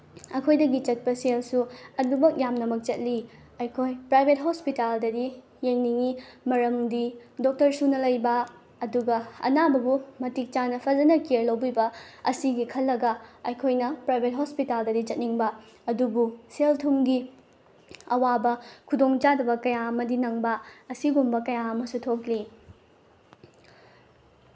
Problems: background sounds at intervals